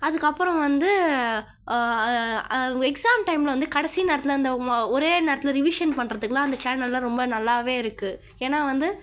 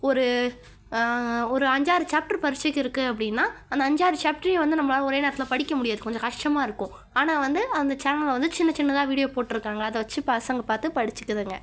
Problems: none marked